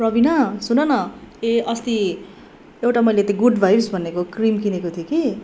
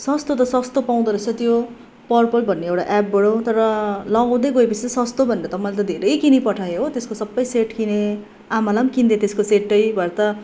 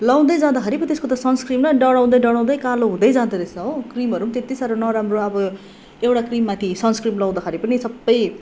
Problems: none marked